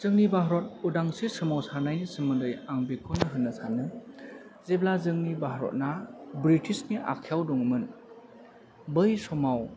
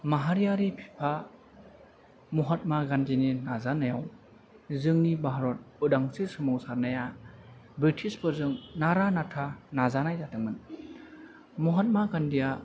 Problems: low volume